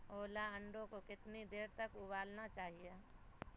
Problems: constant background noise